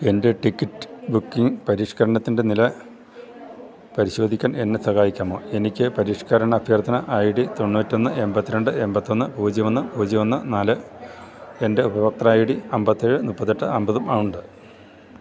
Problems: background sounds at intervals